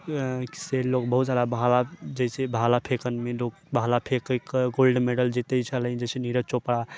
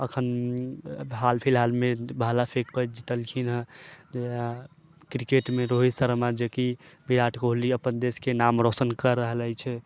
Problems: none marked